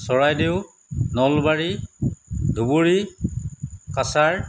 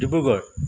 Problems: none marked